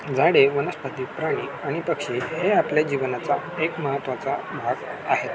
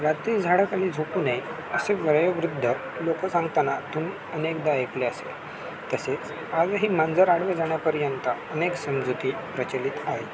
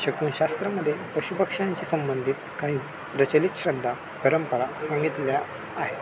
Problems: constant background noise